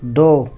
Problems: none marked